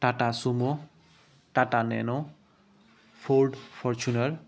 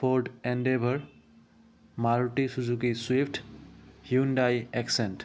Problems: none marked